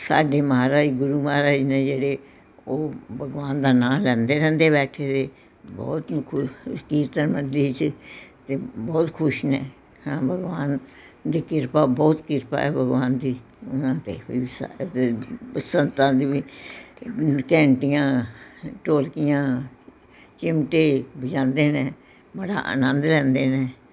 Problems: background conversations at intervals